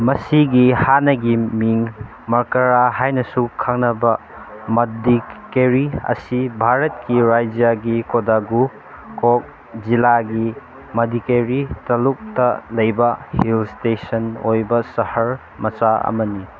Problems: constant background noise